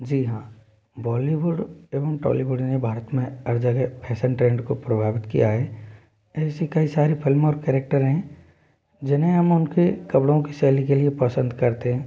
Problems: background sounds at intervals